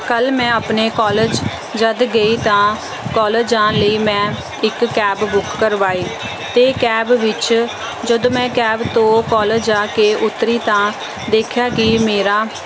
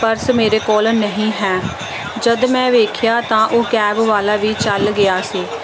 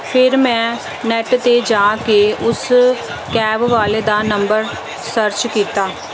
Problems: none marked